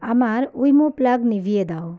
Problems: background conversations at intervals